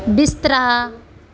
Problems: none marked